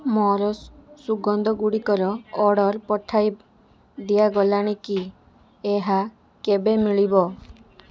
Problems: background conversations at intervals